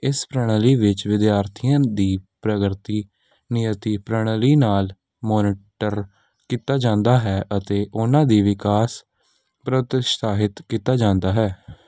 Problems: background sounds at intervals